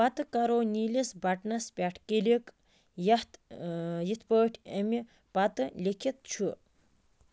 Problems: constant background noise